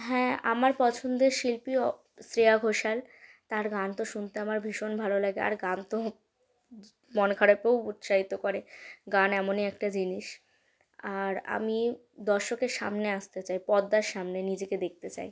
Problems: constant background noise